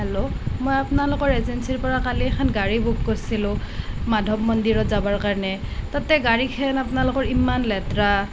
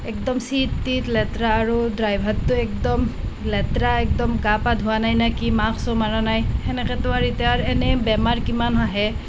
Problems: constant background noise